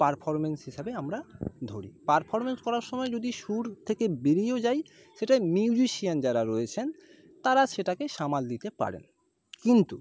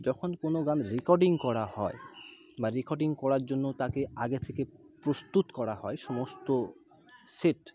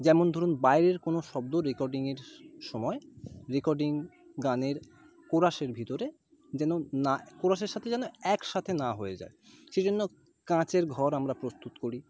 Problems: background sounds at intervals, background conversations at intervals